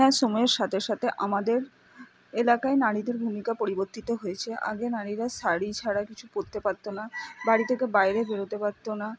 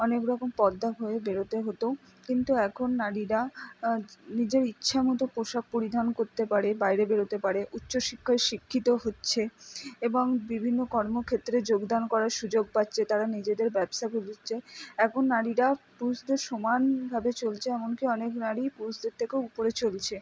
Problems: background sounds at intervals